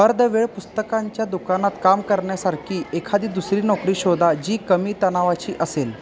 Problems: none marked